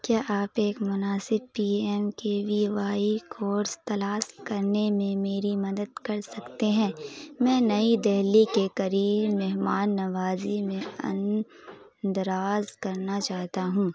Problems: constant background noise